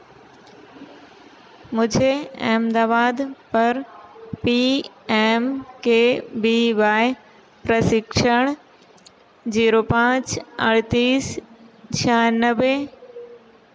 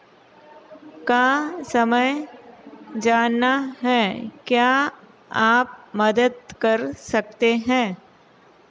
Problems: constant background noise